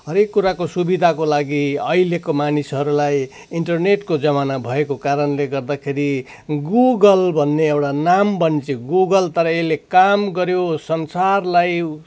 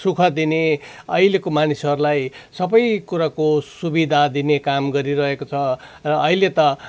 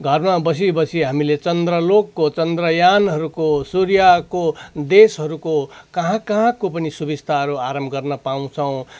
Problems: background sounds at intervals